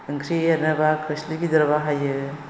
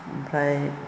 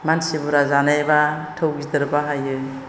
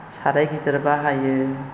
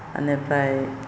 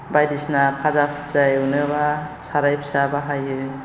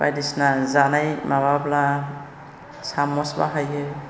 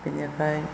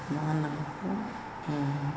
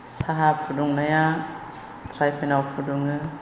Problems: constant background noise